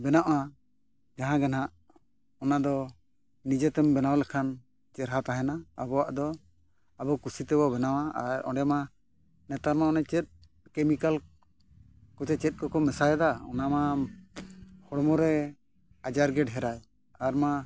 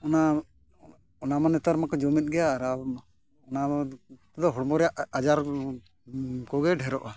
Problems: none marked